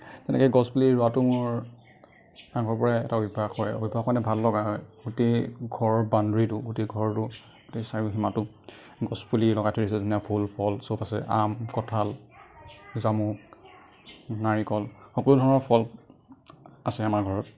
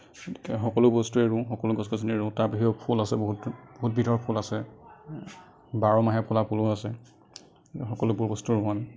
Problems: none marked